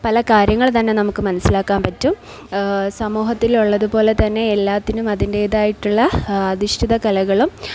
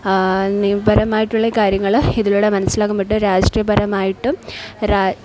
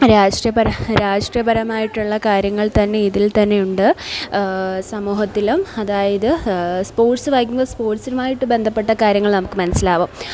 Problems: none marked